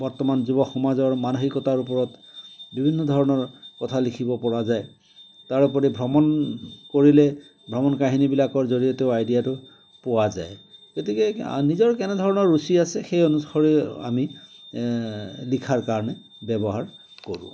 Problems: none marked